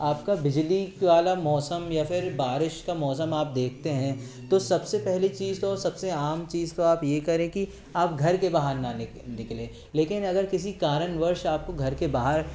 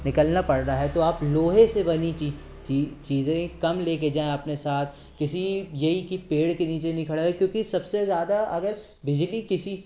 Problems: none marked